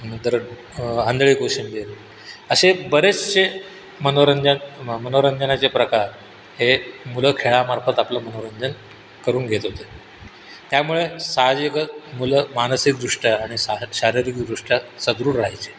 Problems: constant background noise